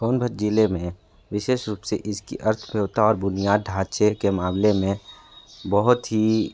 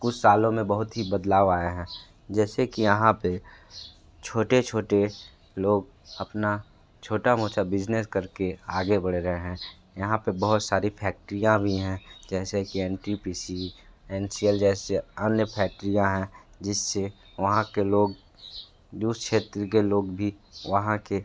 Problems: constant background noise